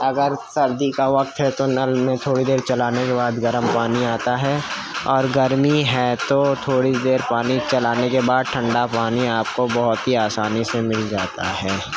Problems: constant background noise